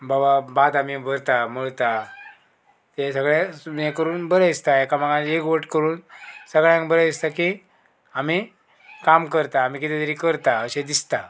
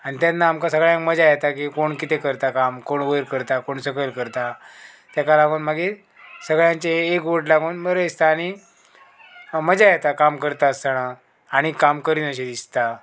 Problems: background sounds at intervals